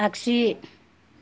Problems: none marked